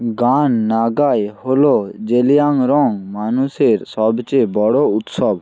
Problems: constant background noise